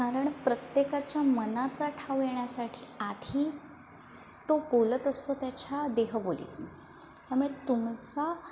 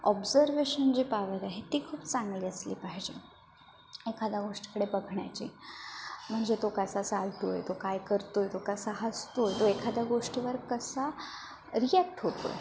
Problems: constant background noise, background conversations at intervals